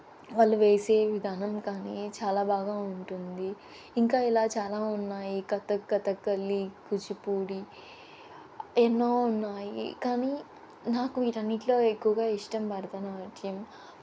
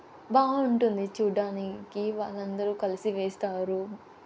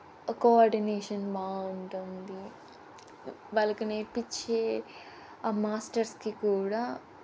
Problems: constant background noise